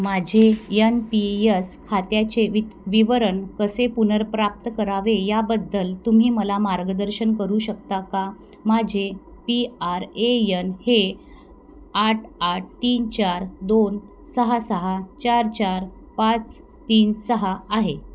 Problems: none marked